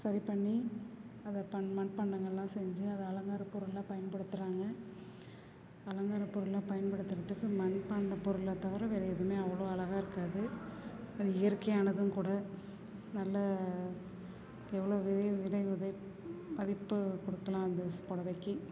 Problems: none marked